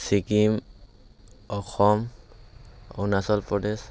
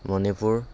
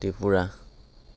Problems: none marked